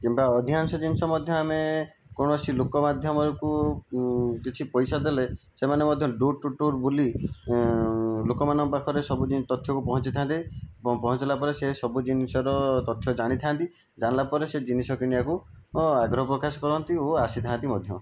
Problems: background sounds at intervals